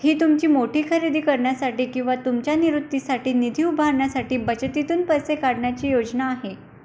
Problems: background sounds at intervals